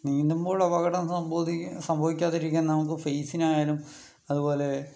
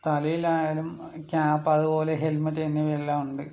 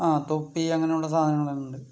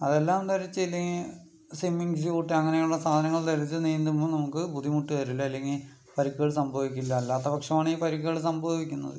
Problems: background sounds at intervals, low volume